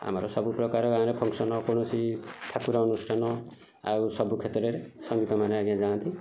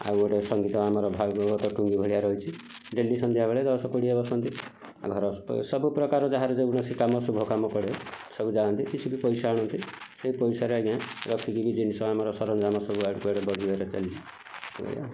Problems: none marked